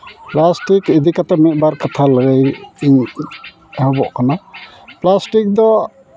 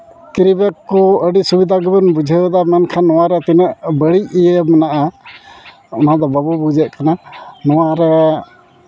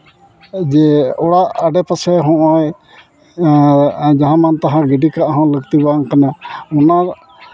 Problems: constant background noise, continuous background conversations